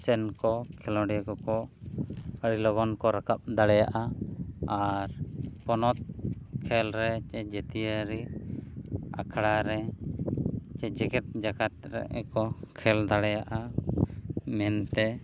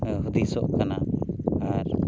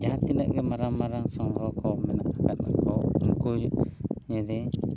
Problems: constant background noise